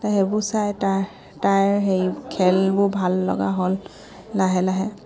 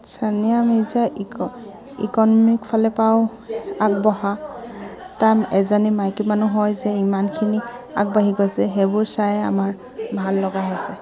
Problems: background sounds at intervals